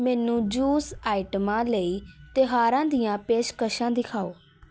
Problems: none marked